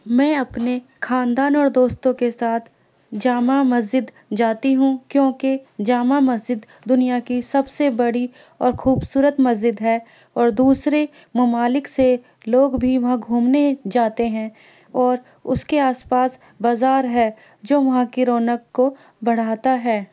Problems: constant background noise